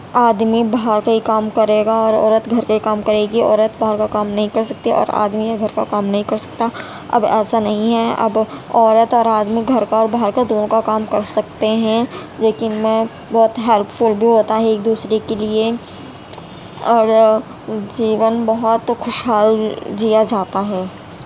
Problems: constant background noise